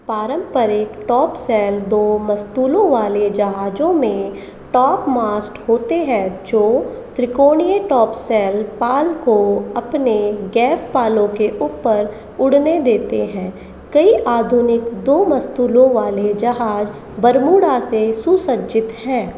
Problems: constant background noise